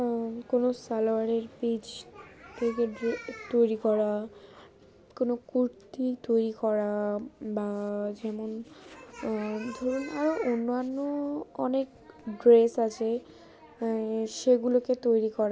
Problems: background sounds at intervals